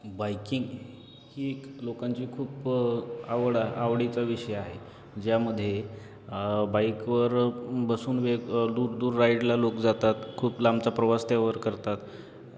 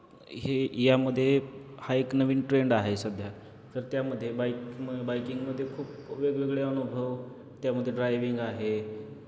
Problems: constant background noise, background conversations at intervals